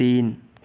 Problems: background sounds at intervals